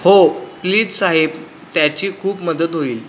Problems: constant background noise